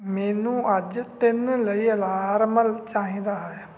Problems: background sounds at intervals